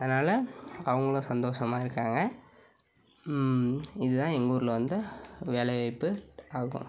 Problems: background sounds at intervals